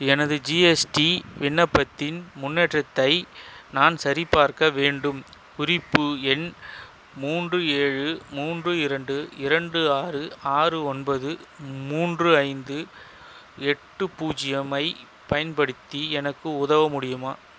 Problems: constant background noise